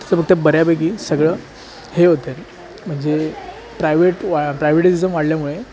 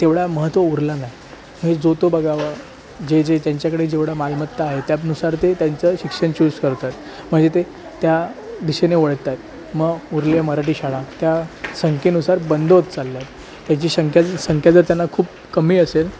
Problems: constant background noise